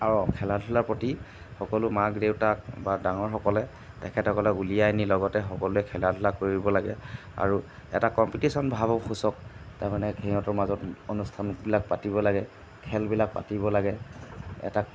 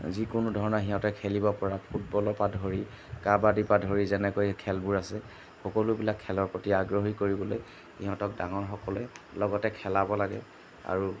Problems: background sounds at intervals